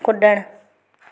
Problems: constant background noise, echo